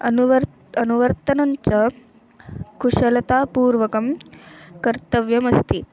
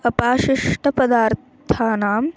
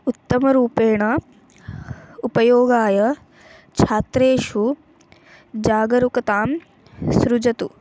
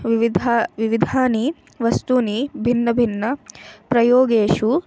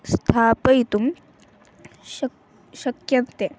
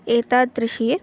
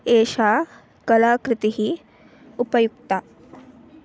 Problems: constant background noise